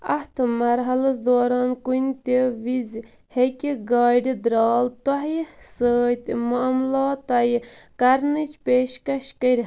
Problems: background sounds at intervals